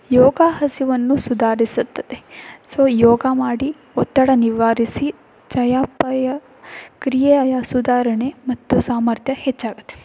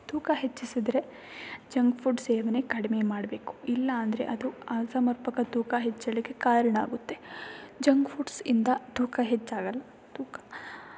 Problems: background sounds at intervals